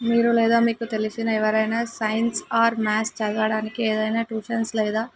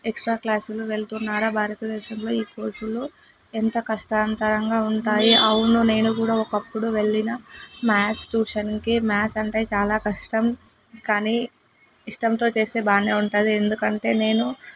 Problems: none marked